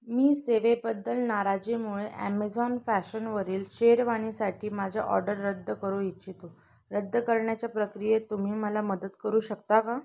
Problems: constant background noise, continuous background conversations